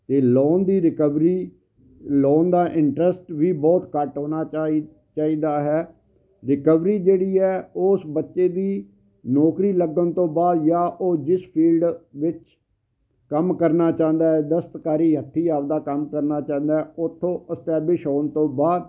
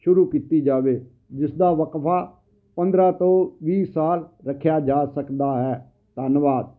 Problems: constant background noise